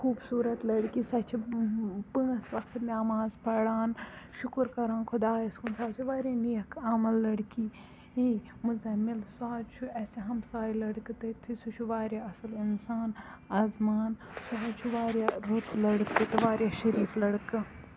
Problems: low volume